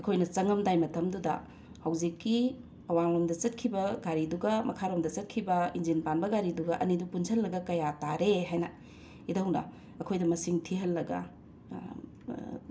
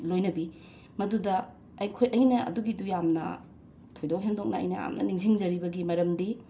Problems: background sounds at intervals